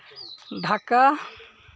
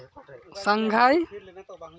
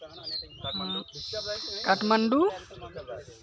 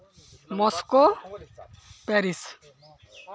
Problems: constant background noise, continuous background conversations